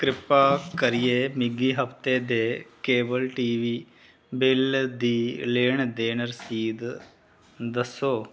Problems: none marked